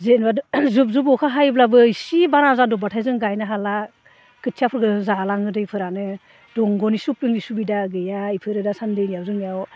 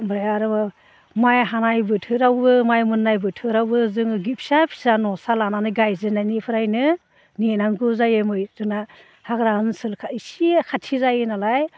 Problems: low volume